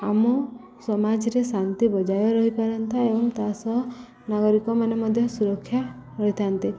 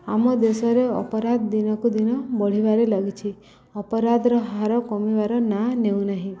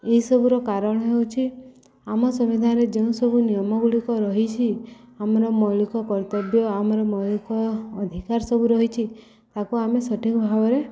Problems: none marked